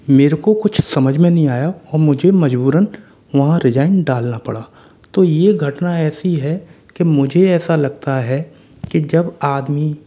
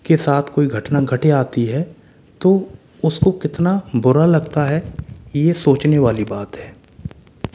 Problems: constant background noise